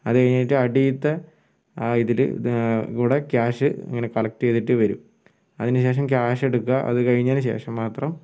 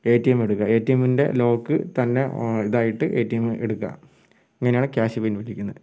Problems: none marked